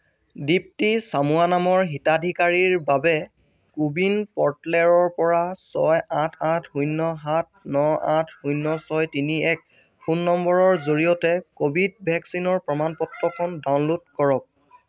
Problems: background sounds at intervals